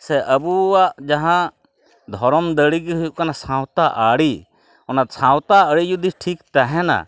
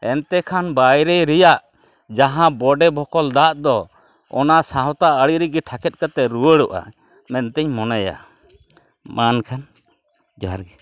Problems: none marked